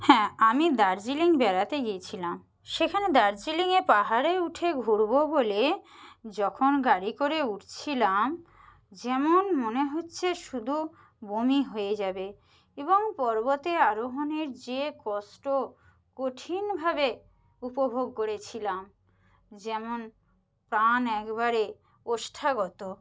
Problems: none marked